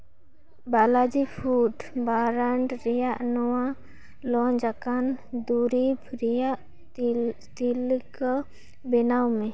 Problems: none marked